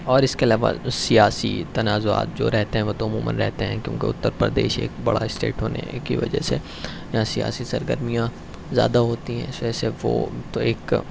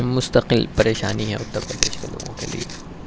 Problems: none marked